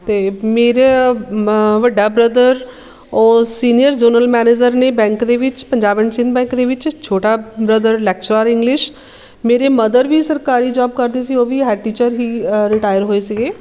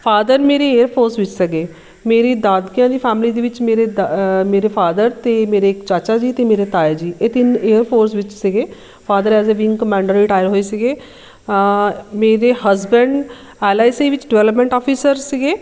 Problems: constant background noise